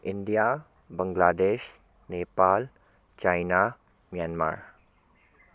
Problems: constant background noise